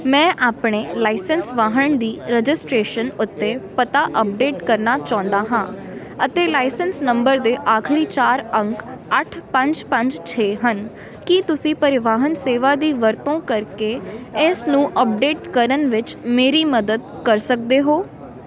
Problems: continuous background conversations